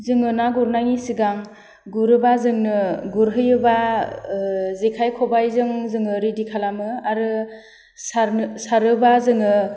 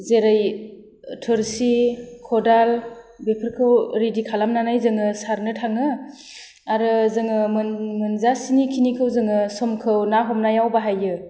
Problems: none marked